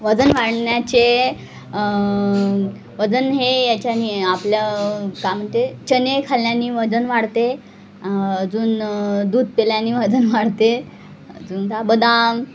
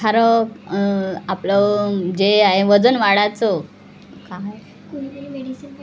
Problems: constant background noise, background conversations at intervals